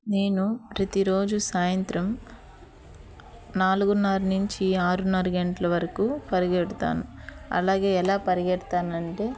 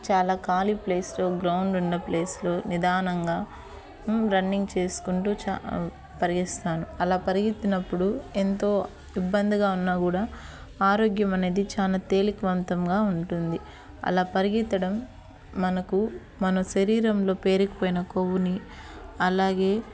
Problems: none marked